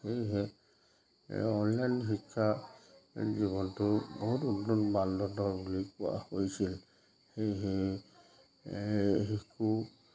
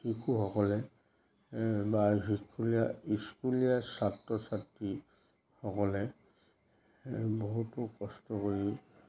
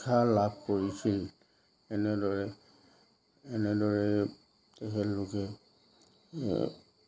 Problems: none marked